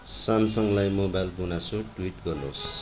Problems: constant background noise